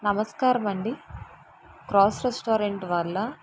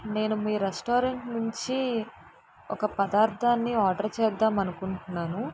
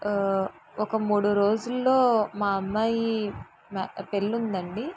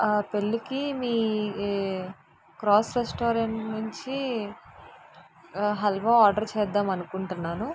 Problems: constant background noise